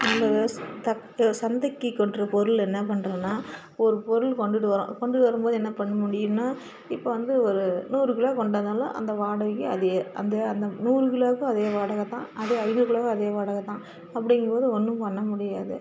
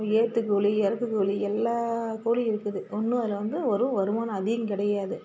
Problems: constant background noise